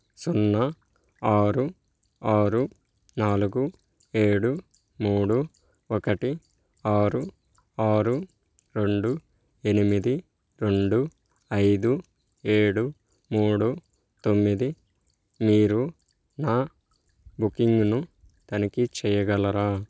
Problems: none marked